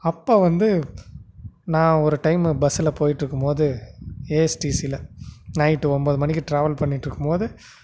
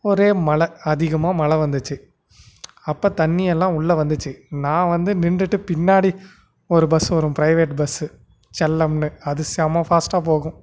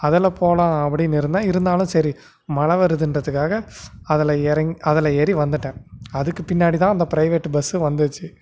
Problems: background sounds at intervals